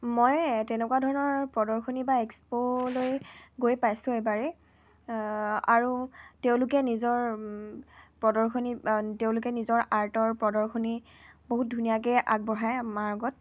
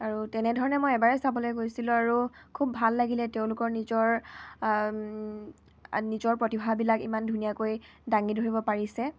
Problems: none marked